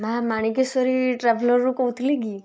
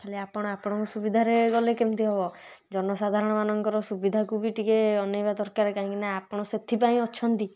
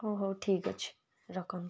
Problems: none marked